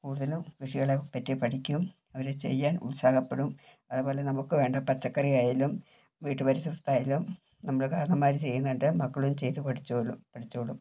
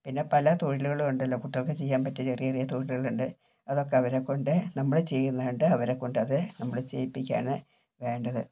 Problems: low volume